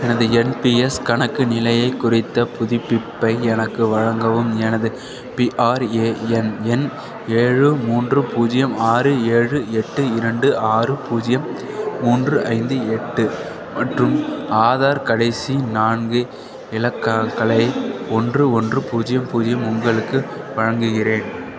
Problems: none marked